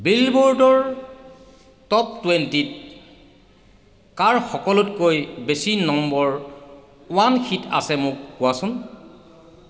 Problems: echo